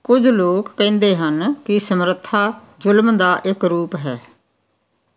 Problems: none marked